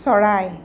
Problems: constant background noise